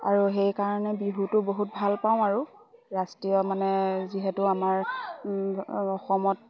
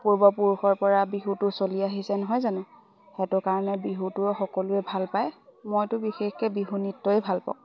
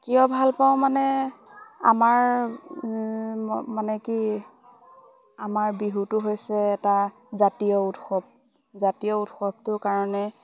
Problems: background sounds at intervals, background conversations at intervals